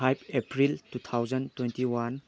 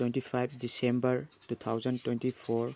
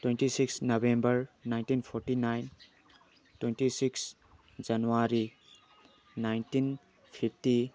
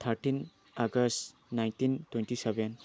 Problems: background sounds at intervals